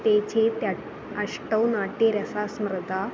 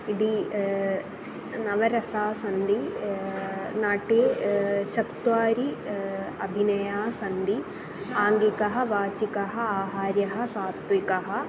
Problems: constant background noise, continuous background conversations